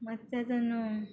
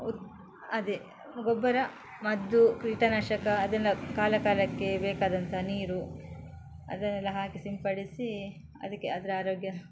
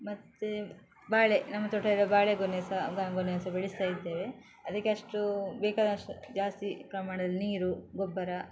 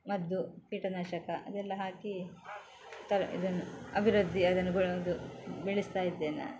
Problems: background sounds at intervals